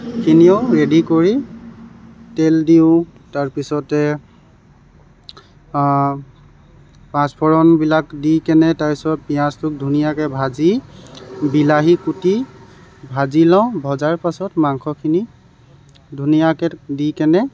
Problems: none marked